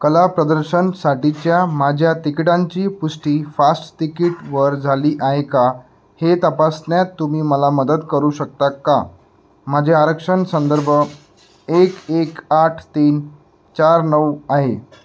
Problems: background sounds at intervals